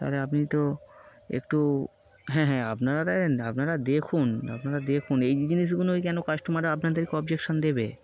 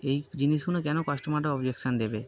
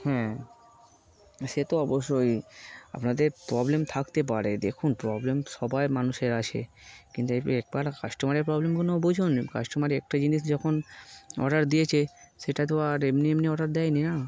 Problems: constant background noise